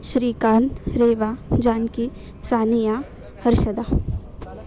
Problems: none marked